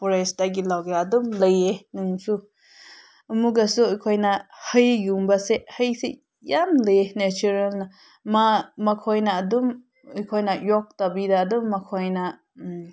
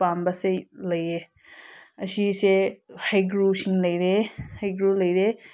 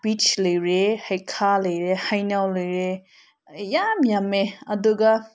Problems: none marked